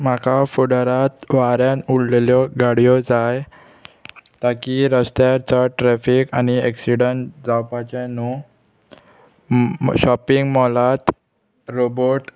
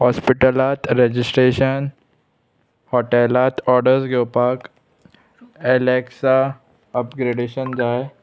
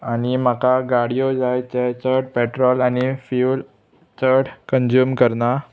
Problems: constant background noise, background conversations at intervals